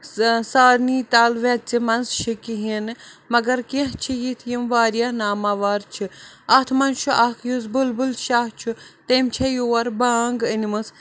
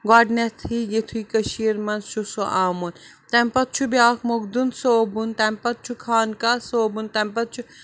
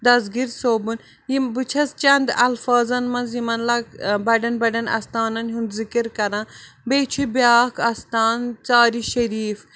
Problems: none marked